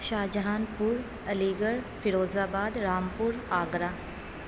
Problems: constant background noise